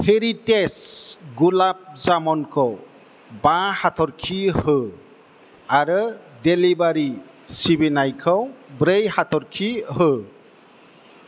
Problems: constant background noise